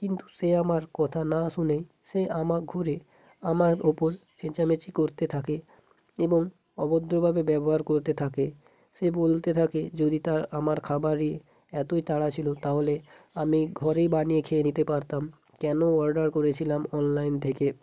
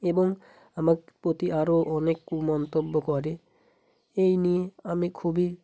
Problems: background sounds at intervals